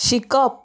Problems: none marked